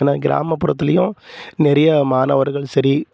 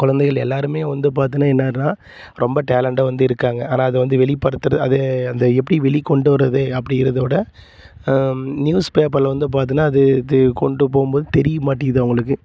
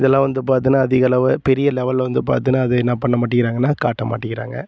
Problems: constant background noise